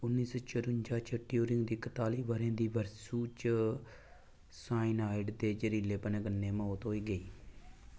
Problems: low volume